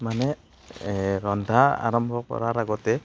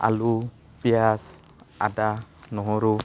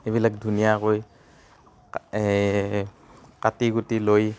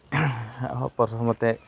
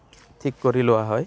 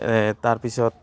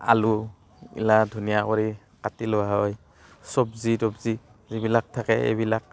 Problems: constant background noise